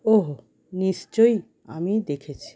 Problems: continuous background conversations